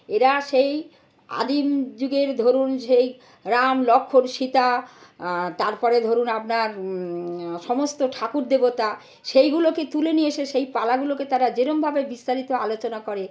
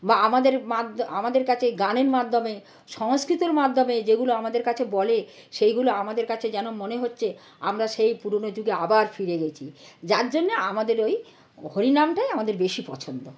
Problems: none marked